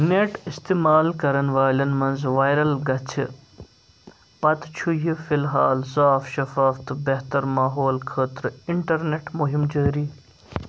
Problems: background sounds at intervals